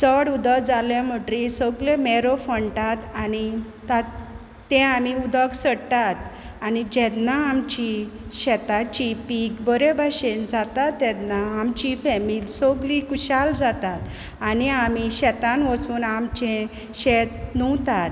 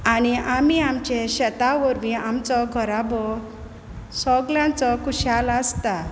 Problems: none marked